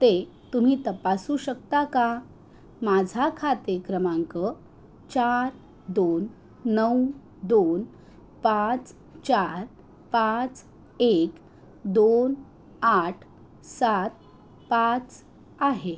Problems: constant background noise